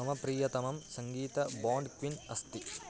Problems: constant background noise